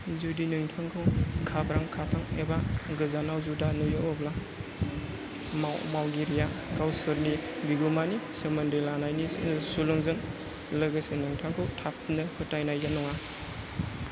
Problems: constant background noise